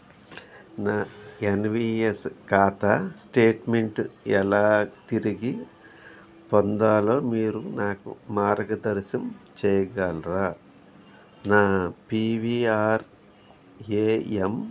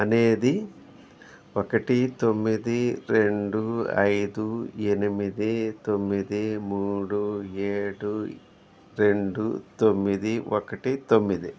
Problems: background sounds at intervals